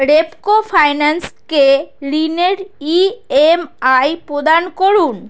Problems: none marked